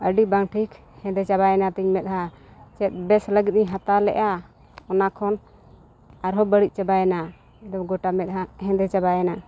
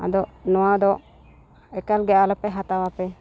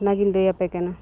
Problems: constant background noise, continuous background conversations